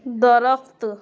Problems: constant background noise